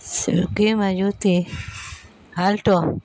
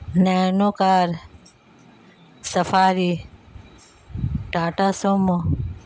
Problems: constant background noise